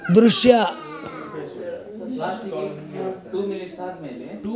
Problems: background conversations at intervals